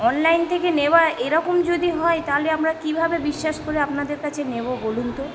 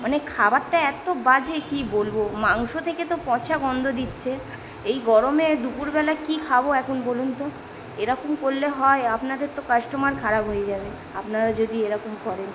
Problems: constant background noise, background conversations at intervals